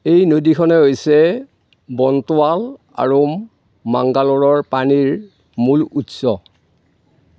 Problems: none marked